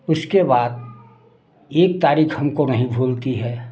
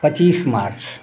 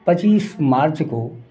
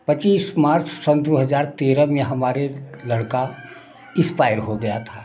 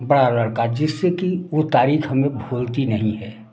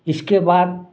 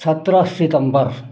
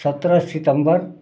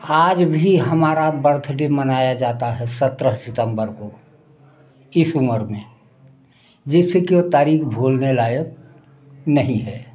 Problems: background sounds at intervals, background conversations at intervals